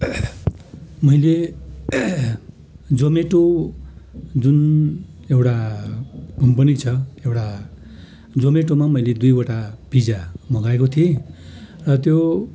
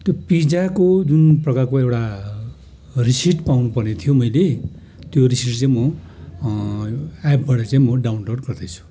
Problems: background sounds at intervals